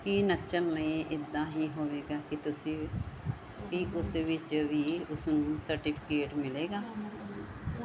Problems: continuous background conversations